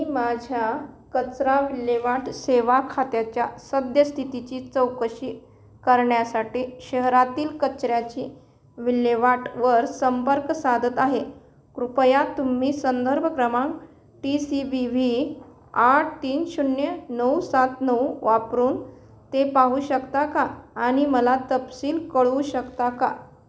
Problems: constant background noise